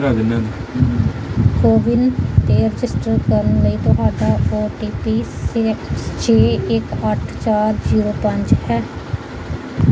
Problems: background sounds at intervals, background conversations at intervals